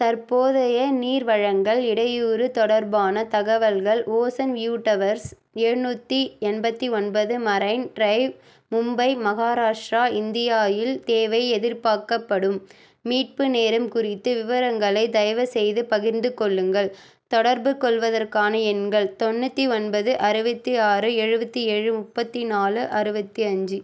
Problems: none marked